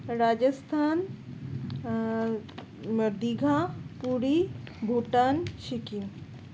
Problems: constant background noise